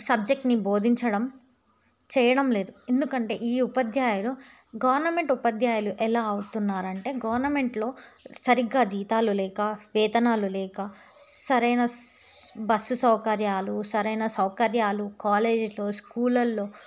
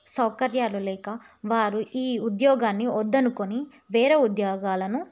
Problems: none marked